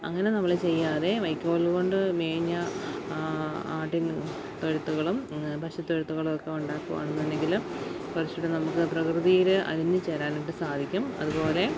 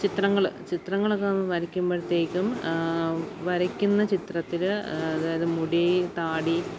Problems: constant background noise